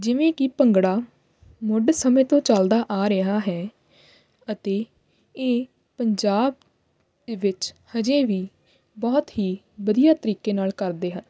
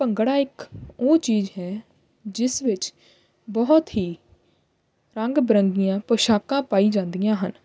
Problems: constant background noise